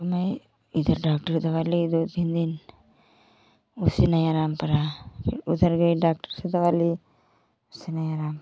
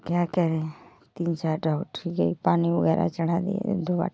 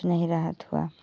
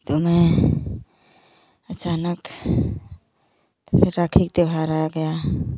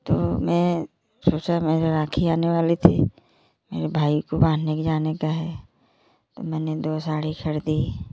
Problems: none marked